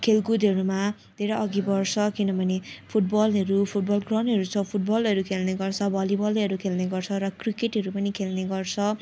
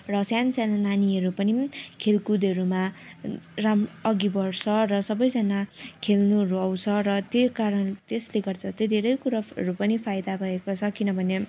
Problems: none marked